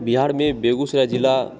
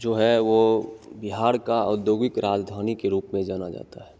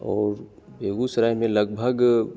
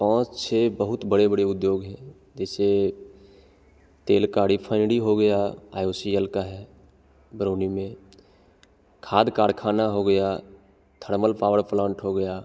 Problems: constant background noise, echo